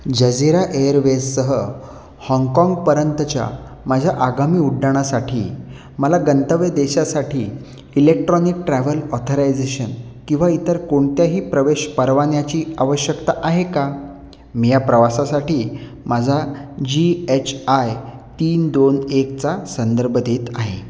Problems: none marked